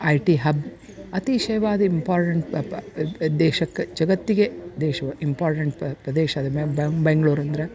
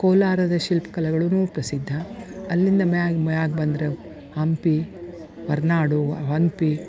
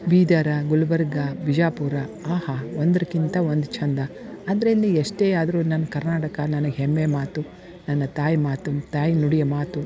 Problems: background sounds at intervals